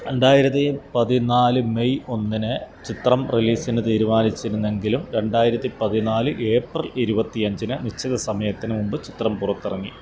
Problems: constant background noise